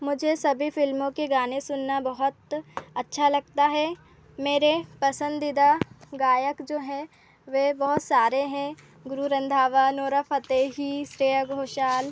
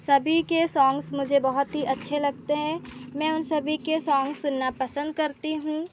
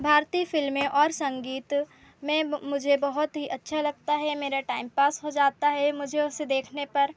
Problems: none marked